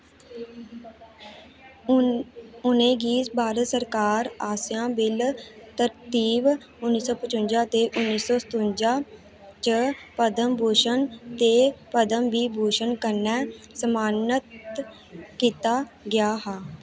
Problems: background sounds at intervals